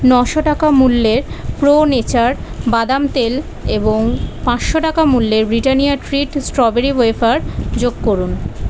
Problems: constant background noise